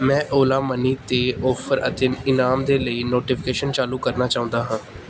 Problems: background sounds at intervals